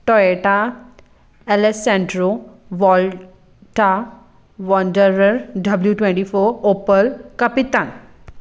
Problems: background sounds at intervals